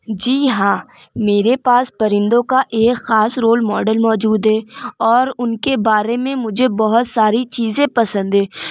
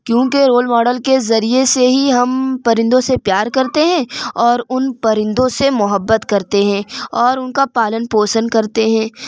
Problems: constant background noise